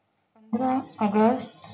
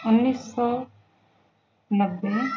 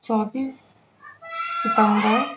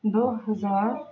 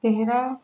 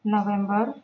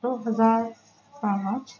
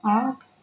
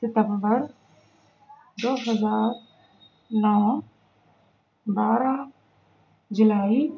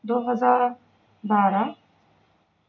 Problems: constant background noise, background conversations at intervals